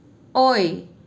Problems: none marked